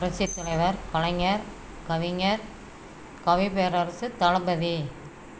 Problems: constant background noise